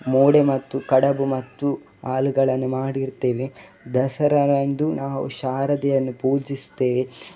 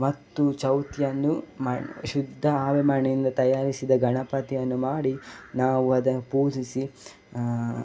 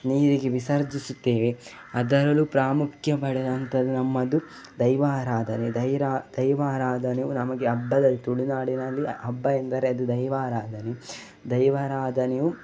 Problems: background sounds at intervals